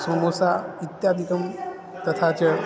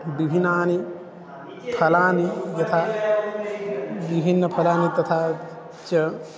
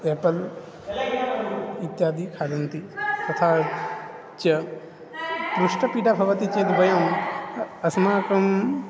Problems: none marked